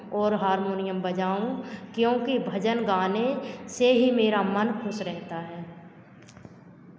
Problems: none marked